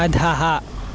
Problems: constant background noise